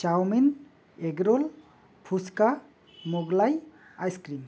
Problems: background sounds at intervals